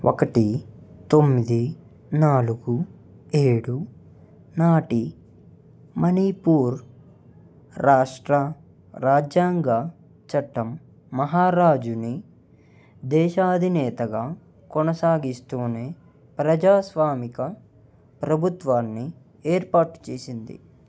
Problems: none marked